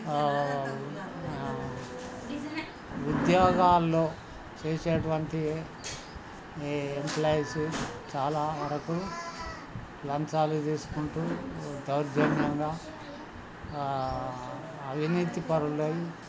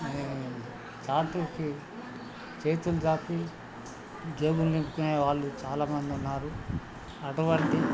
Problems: constant background noise, continuous background conversations